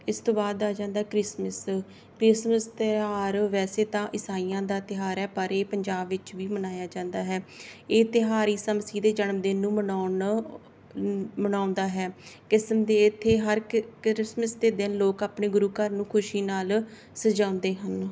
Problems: none marked